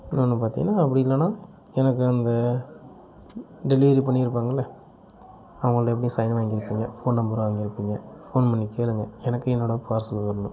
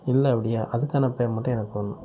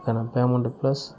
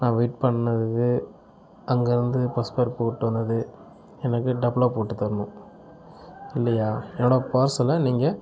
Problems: none marked